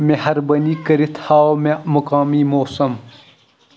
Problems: none marked